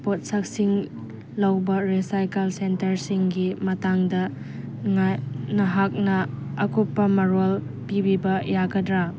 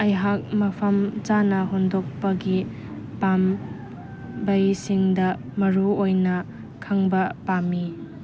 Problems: background sounds at intervals